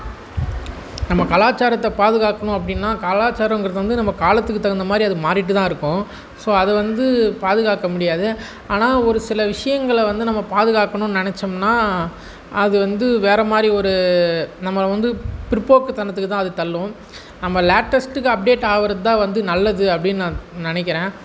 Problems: background sounds at intervals